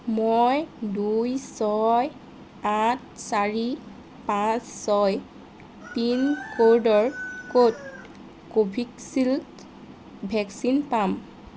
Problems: constant background noise